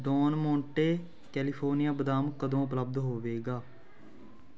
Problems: continuous background conversations